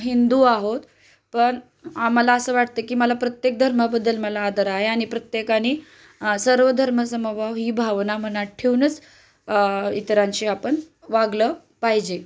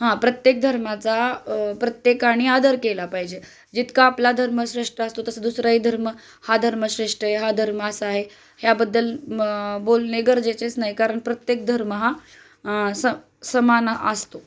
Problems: none marked